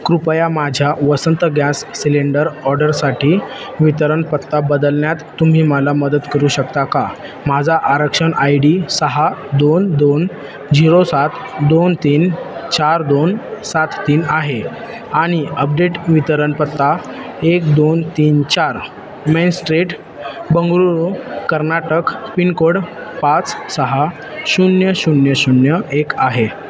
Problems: constant background noise, continuous background conversations